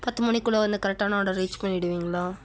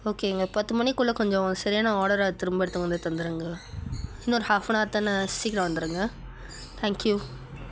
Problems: background sounds at intervals